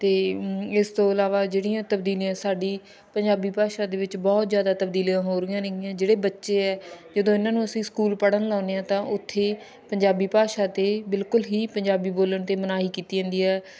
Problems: none marked